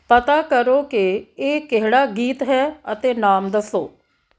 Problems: background conversations at intervals